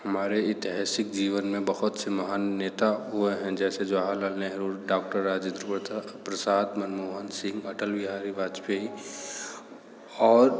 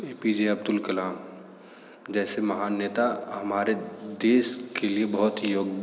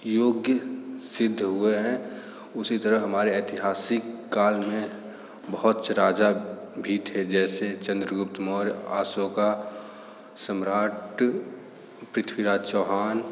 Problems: constant background noise, echo